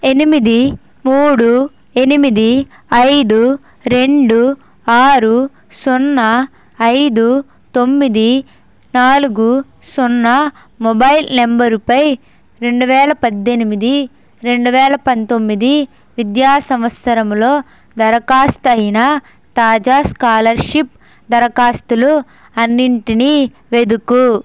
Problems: constant background noise